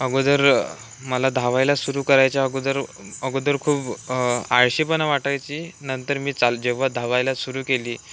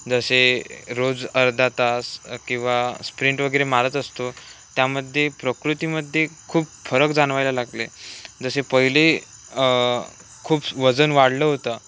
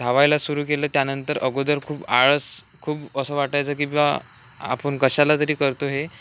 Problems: none marked